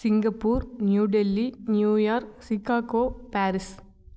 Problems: none marked